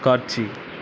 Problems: constant background noise